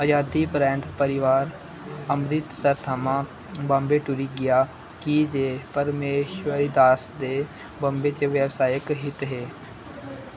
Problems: constant background noise